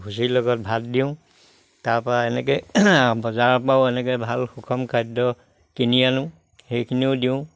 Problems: background sounds at intervals